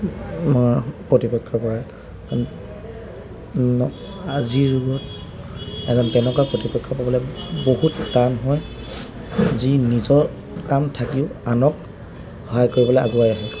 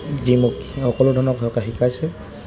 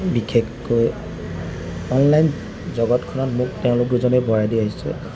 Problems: constant background noise